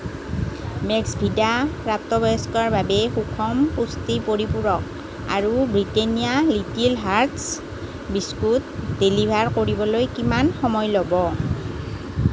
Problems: constant background noise